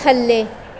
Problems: constant background noise